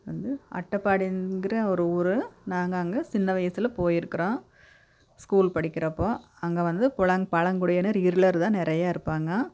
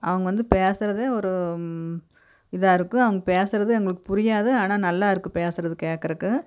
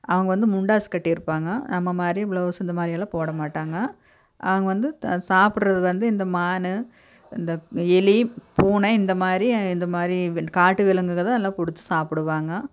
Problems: none marked